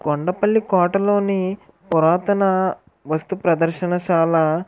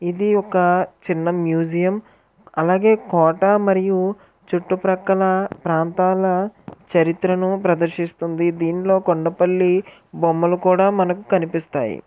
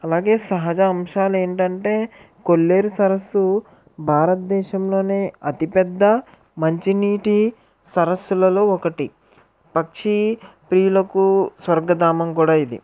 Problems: background conversations at intervals